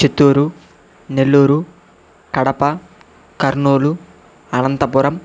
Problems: constant background noise